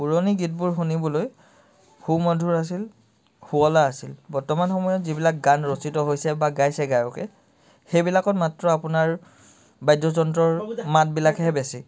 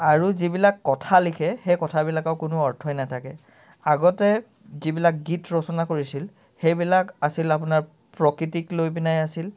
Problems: background sounds at intervals